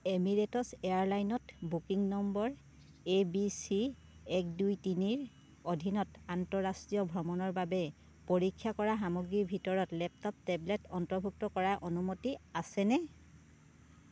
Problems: none marked